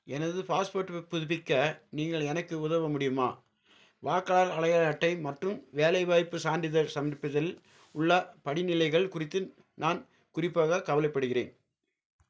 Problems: none marked